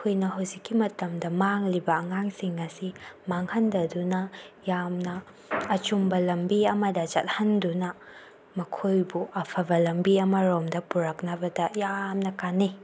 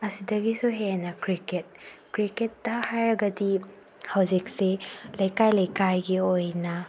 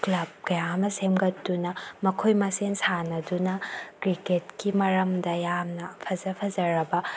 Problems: none marked